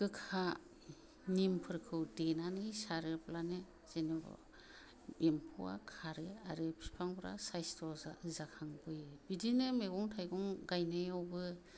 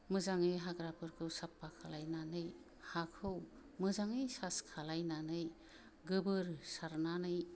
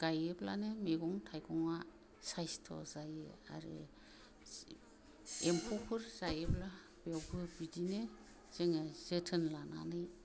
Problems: low volume